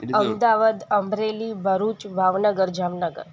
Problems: constant background noise